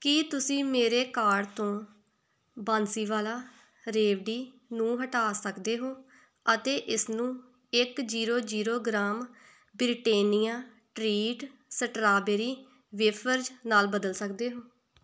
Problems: none marked